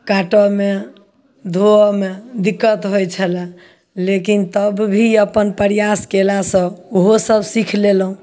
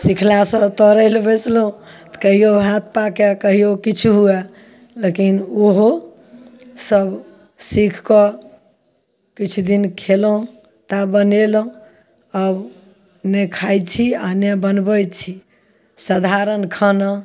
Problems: none marked